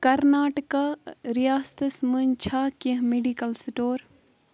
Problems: constant background noise